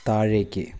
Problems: constant background noise, low volume